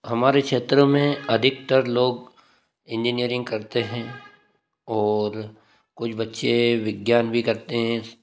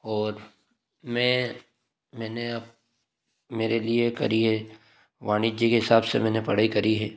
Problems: none marked